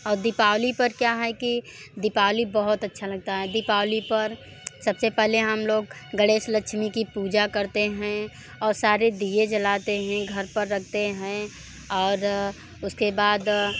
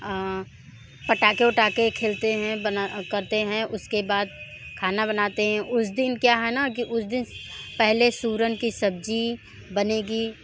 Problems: constant background noise